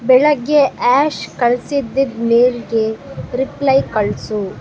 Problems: none marked